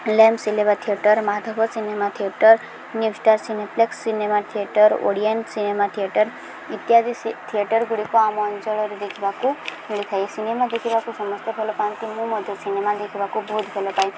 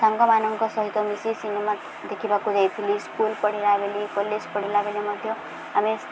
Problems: none marked